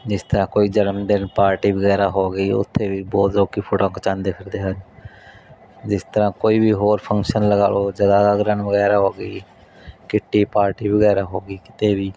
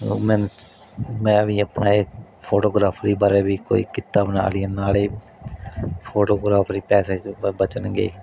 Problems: background sounds at intervals